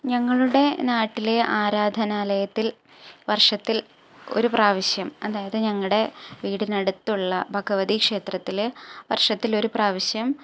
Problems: none marked